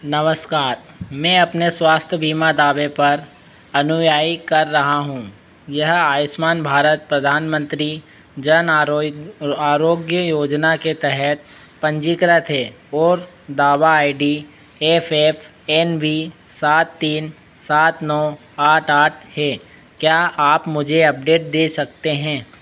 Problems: constant background noise